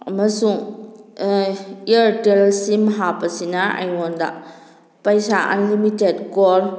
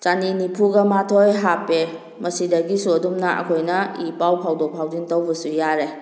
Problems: none marked